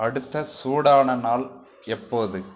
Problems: none marked